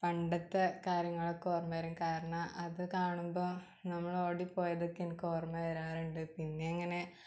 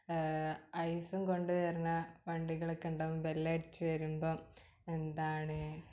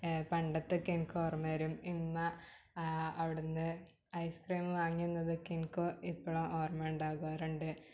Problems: background sounds at intervals, low volume